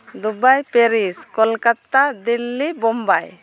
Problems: none marked